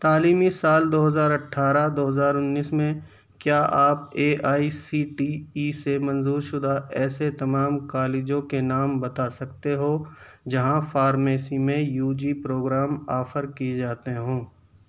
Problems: background sounds at intervals